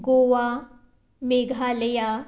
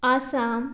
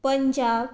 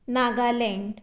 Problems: constant background noise